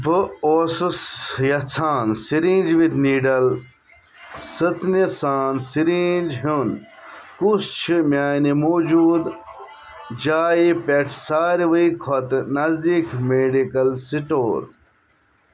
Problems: background sounds at intervals